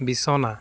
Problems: background sounds at intervals